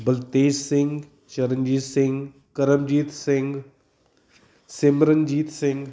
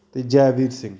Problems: background sounds at intervals